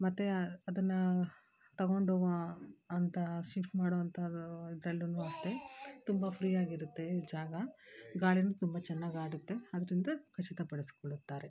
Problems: background sounds at intervals